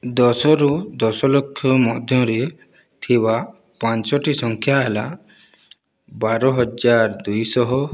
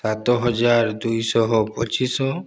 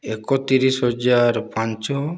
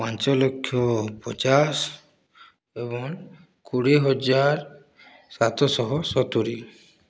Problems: none marked